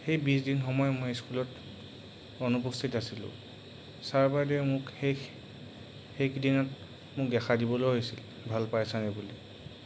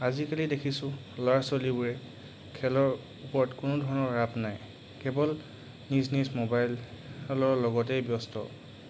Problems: background sounds at intervals